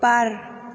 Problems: none marked